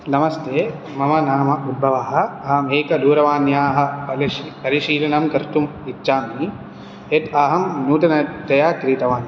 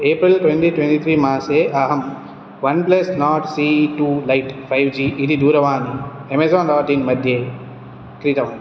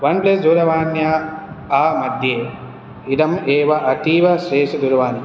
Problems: none marked